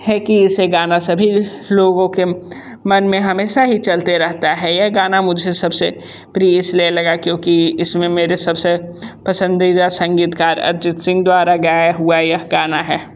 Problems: constant background noise